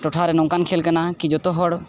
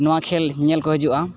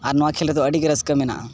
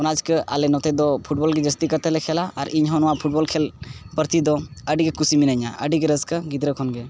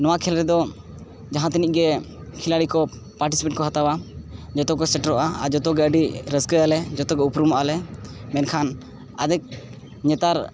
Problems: none marked